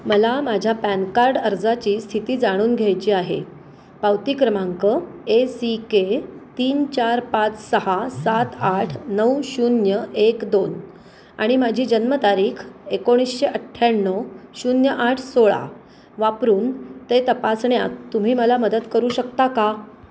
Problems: constant background noise